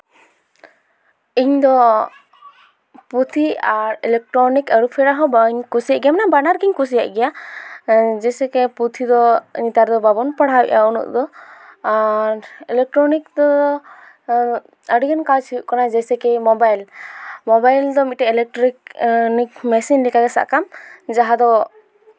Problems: constant background noise